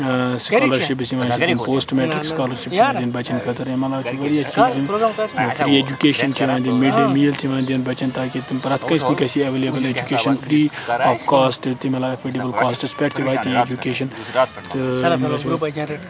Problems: constant background noise, continuous background conversations